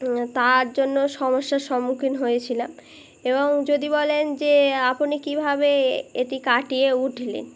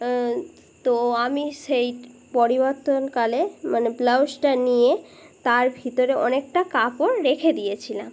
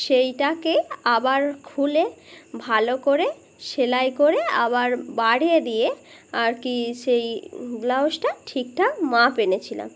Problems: background conversations at intervals